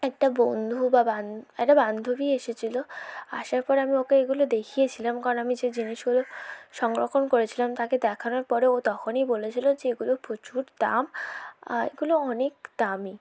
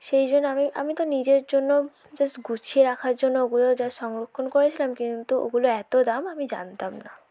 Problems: none marked